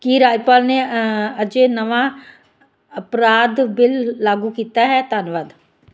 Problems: none marked